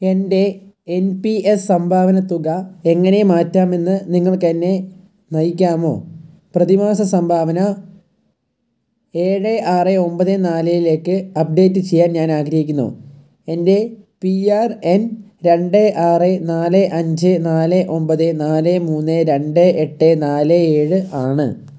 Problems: low volume